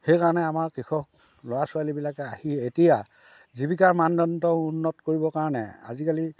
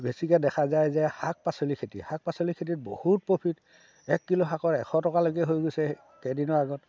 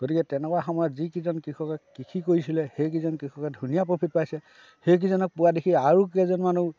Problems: background conversations at intervals